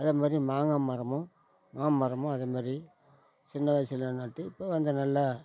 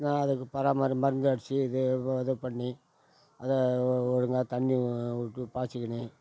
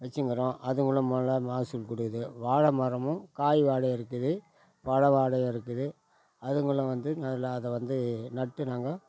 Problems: none marked